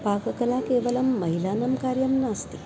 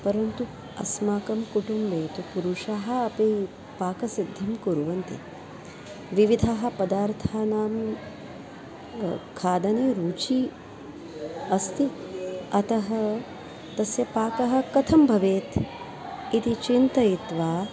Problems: background sounds at intervals